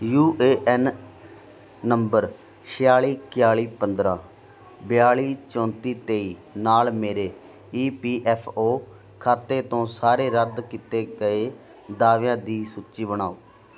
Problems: continuous background conversations